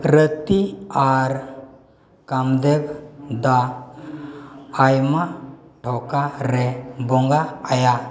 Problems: background sounds at intervals, continuous background conversations